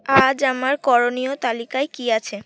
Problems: none marked